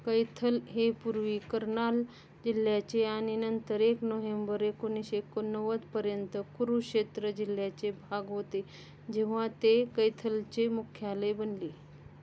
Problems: constant background noise